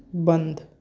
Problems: low volume